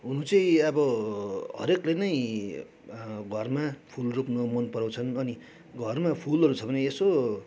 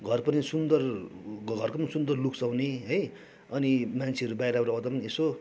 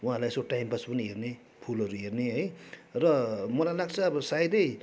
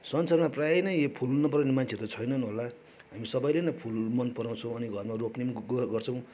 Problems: none marked